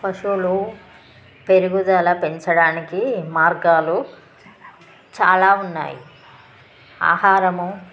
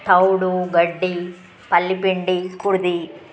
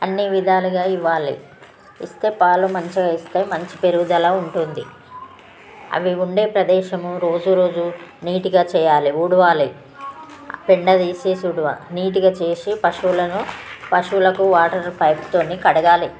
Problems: constant background noise, background conversations at intervals